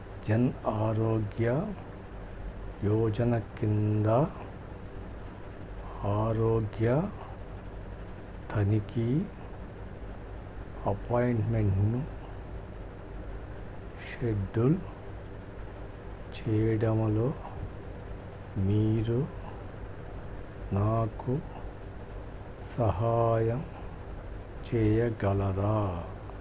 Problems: low volume